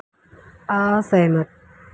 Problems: low volume